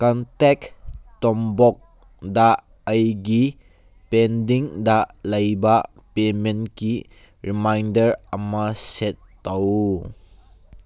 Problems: none marked